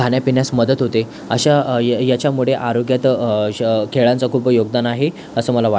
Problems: constant background noise, background conversations at intervals